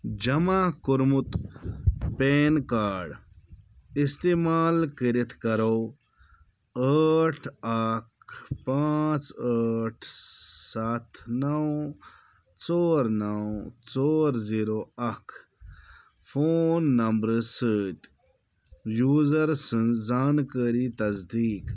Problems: none marked